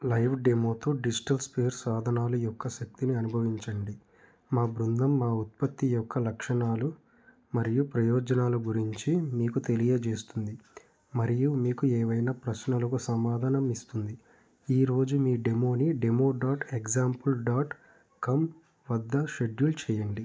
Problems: background sounds at intervals